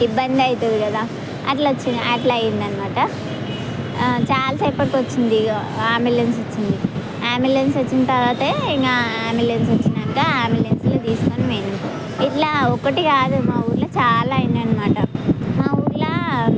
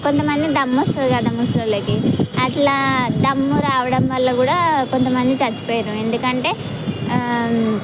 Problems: constant background noise, background conversations at intervals